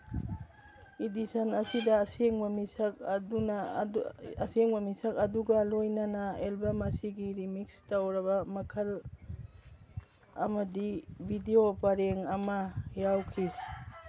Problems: background sounds at intervals